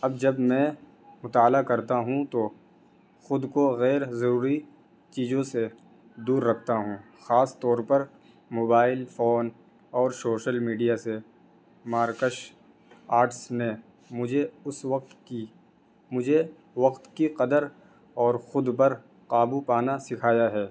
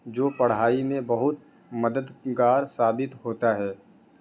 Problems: constant background noise